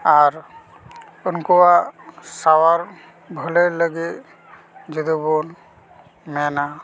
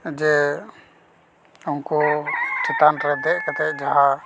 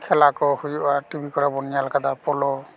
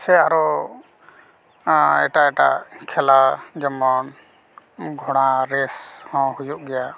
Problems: none marked